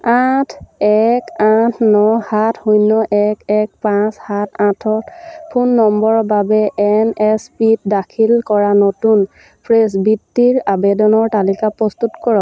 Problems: none marked